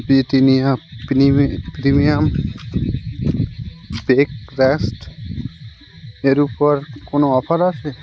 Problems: constant background noise